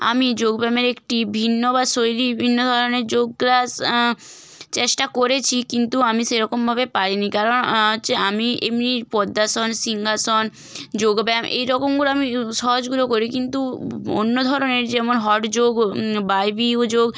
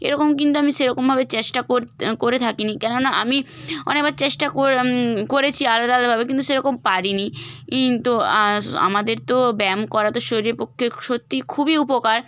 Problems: none marked